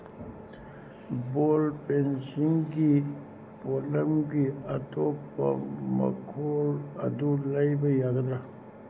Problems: constant background noise